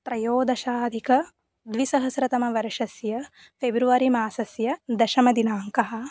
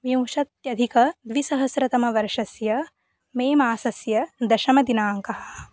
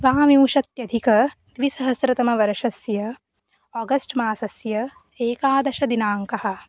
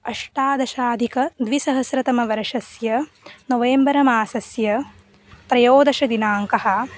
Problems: background sounds at intervals